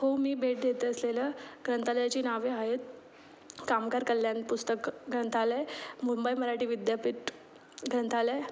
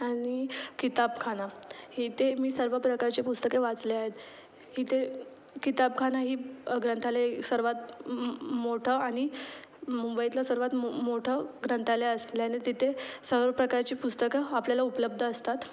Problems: constant background noise, background conversations at intervals